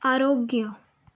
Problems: none marked